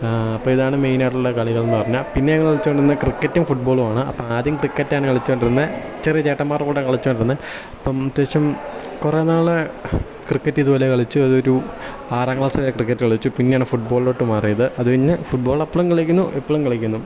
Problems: background sounds at intervals